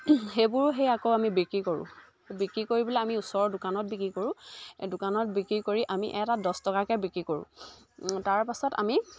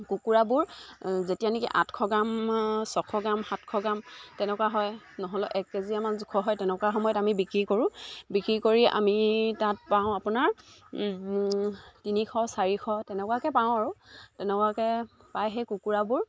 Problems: background sounds at intervals